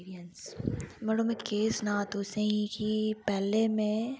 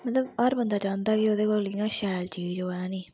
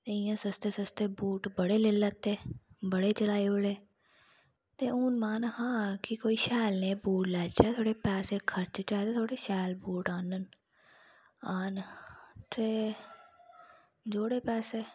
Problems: background sounds at intervals